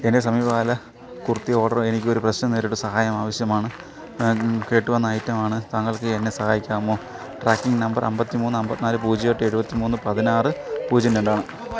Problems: background sounds at intervals